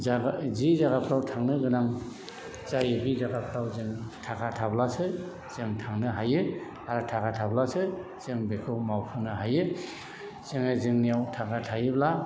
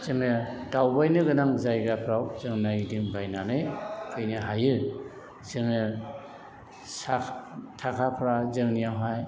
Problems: background sounds at intervals, background conversations at intervals